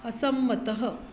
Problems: none marked